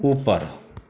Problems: none marked